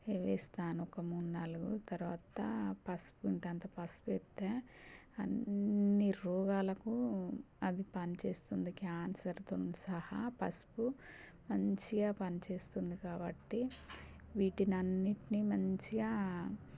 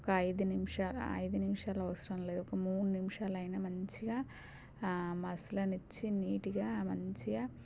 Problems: low volume